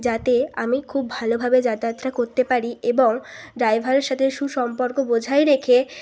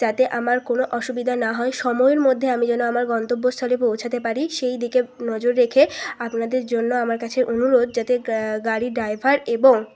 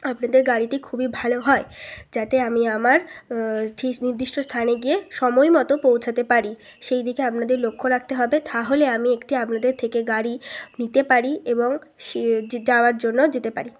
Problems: none marked